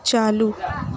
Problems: constant background noise